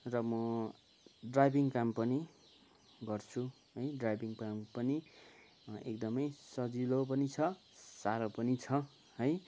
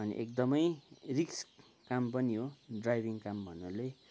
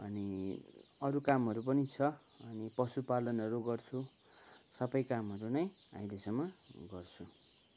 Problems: none marked